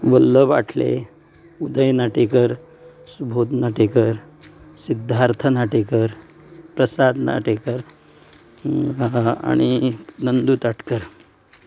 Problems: none marked